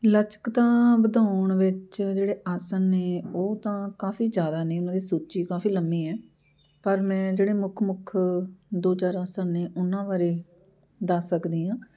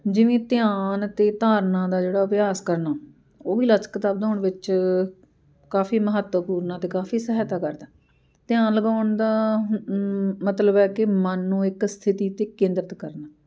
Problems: background sounds at intervals